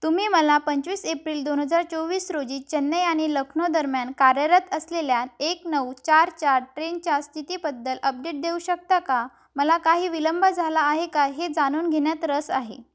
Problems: background sounds at intervals